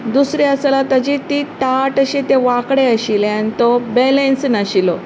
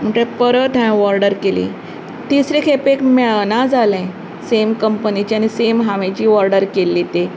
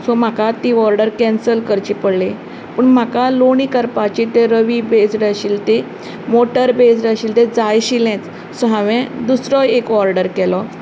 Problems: none marked